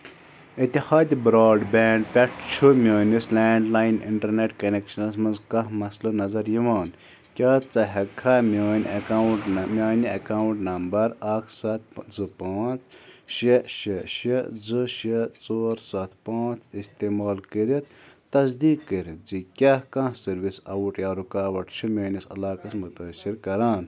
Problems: background sounds at intervals